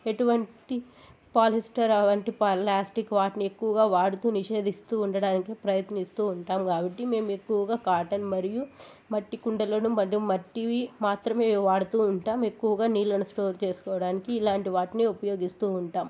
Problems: constant background noise, background conversations at intervals